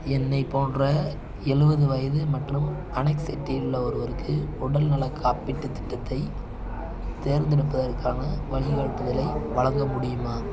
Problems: constant background noise, continuous background conversations